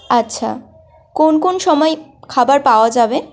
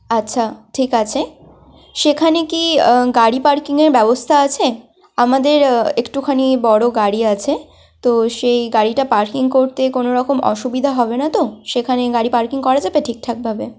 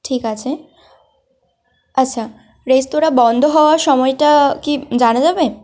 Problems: none marked